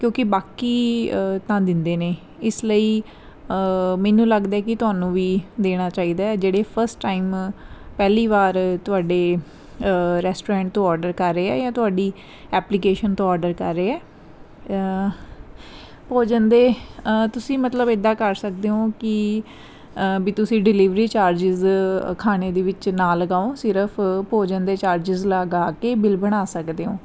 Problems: none marked